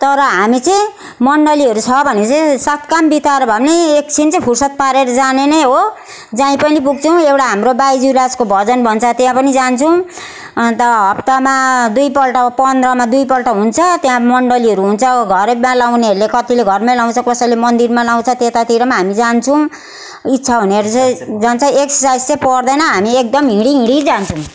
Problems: none marked